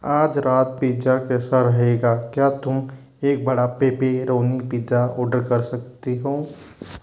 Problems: constant background noise